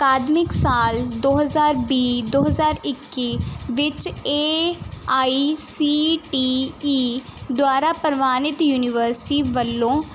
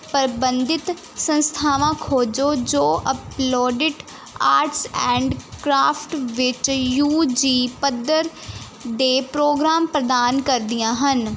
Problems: none marked